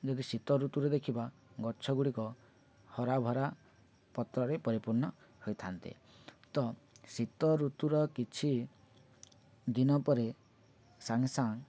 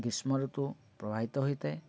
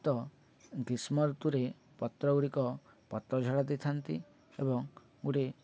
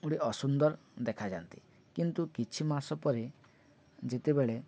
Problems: none marked